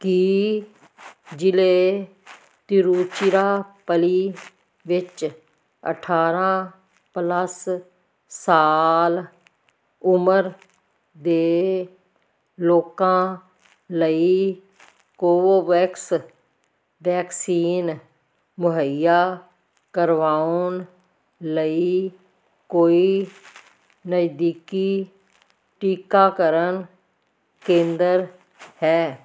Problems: none marked